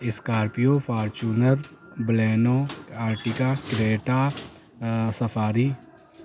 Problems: constant background noise